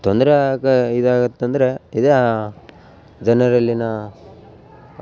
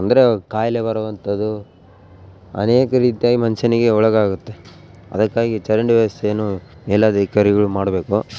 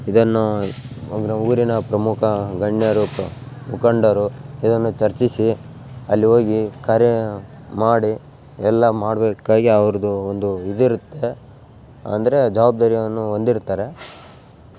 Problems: background sounds at intervals